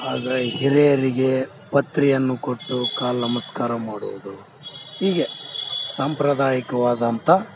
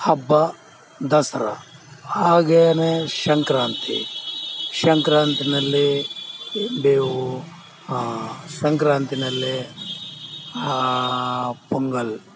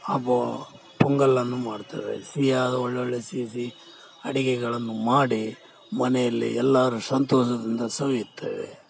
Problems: none marked